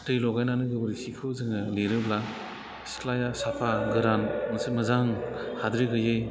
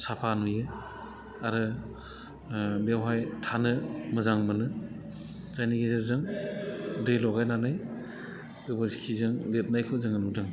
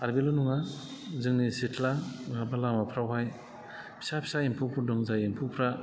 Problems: low volume